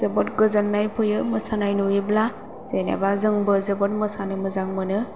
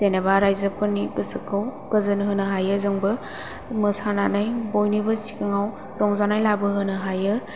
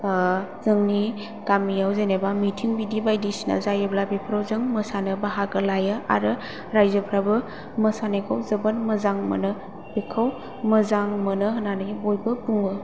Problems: low volume